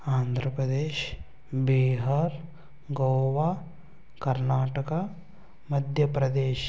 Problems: constant background noise, low volume